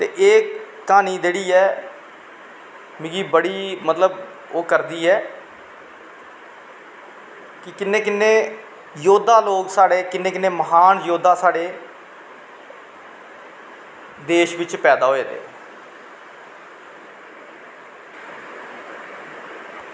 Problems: constant background noise, echo